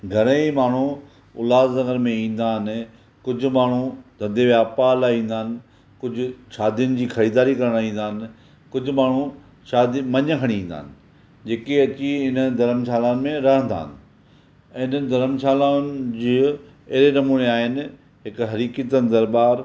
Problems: none marked